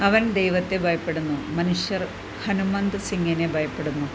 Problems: constant background noise